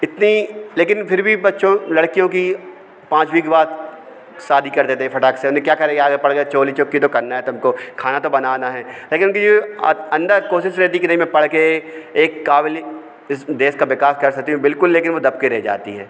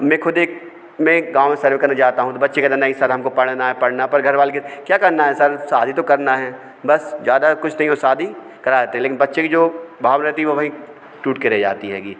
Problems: none marked